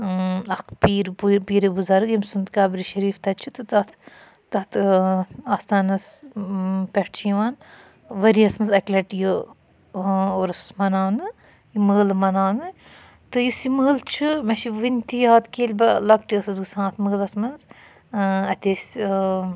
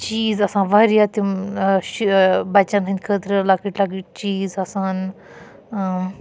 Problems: none marked